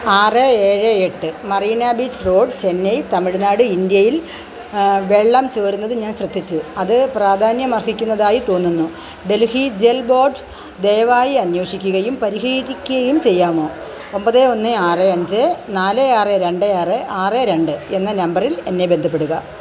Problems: none marked